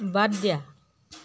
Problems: constant background noise